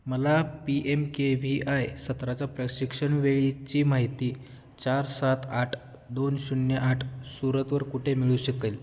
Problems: background sounds at intervals